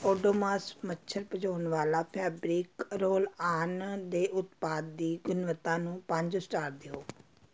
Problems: background sounds at intervals